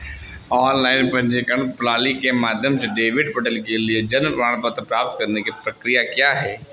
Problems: none marked